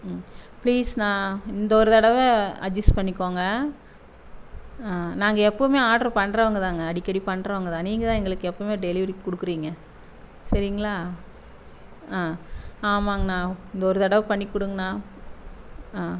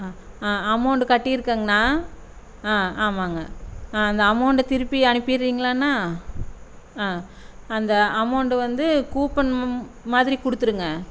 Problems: constant background noise